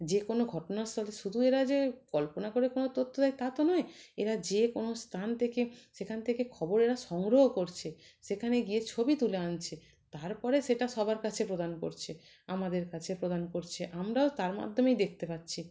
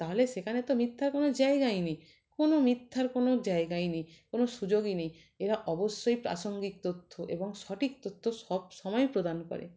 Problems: constant background noise, background conversations at intervals